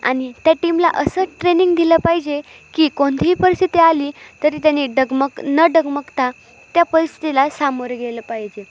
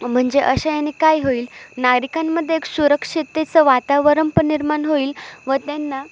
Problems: constant background noise, background conversations at intervals, echo